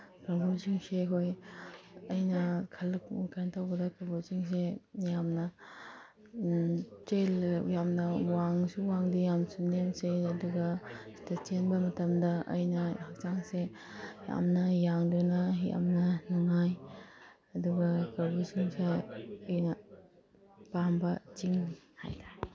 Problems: background sounds at intervals